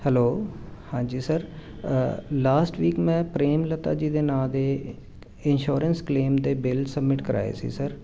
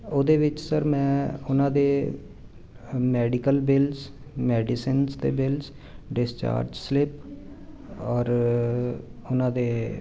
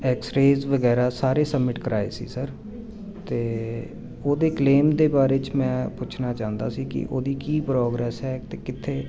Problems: constant background noise